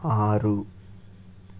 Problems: constant background noise